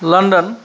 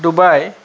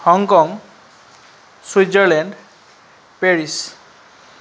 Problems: constant background noise